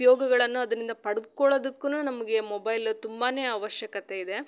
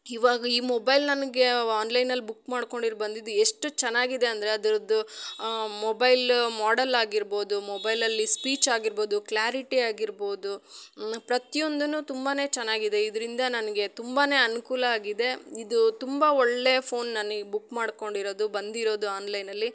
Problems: none marked